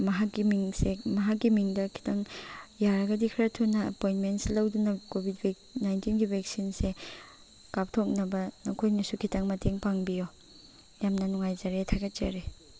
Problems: constant background noise